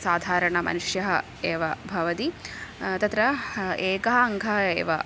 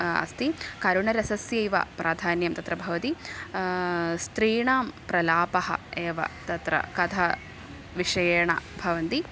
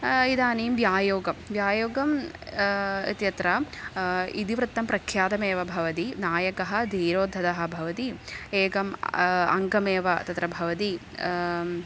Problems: constant background noise